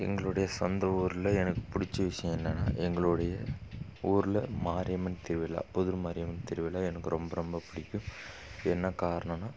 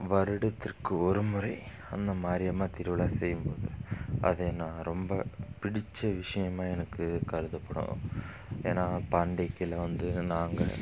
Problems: background sounds at intervals